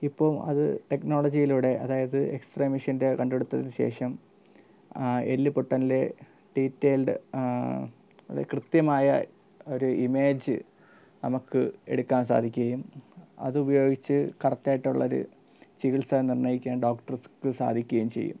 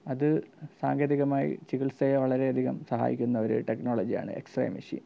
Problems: low volume